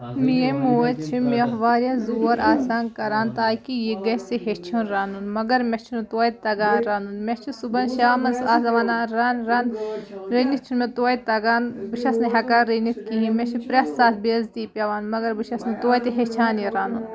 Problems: background sounds at intervals